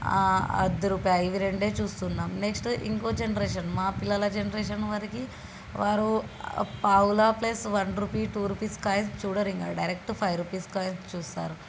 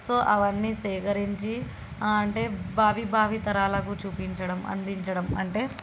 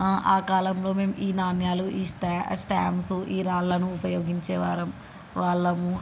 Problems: constant background noise